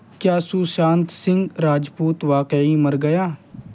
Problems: constant background noise